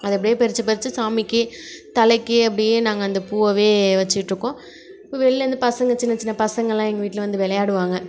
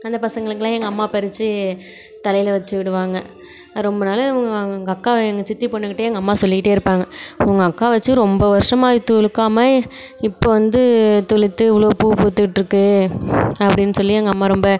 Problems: background sounds at intervals